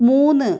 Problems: low volume